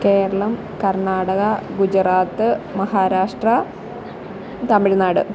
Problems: none marked